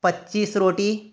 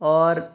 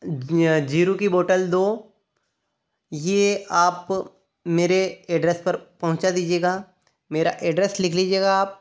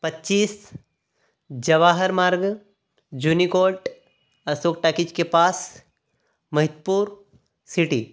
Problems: none marked